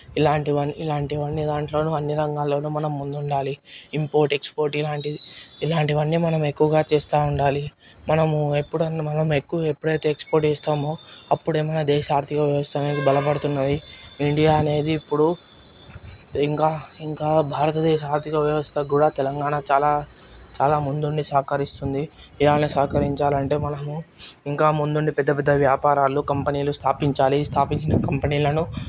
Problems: none marked